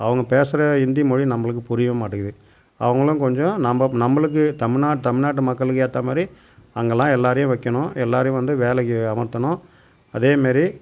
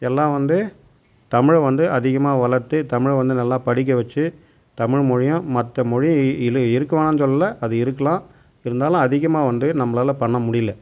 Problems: none marked